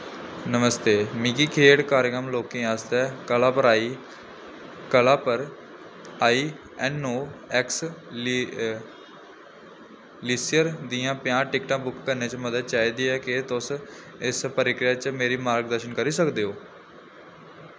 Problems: none marked